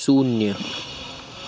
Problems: constant background noise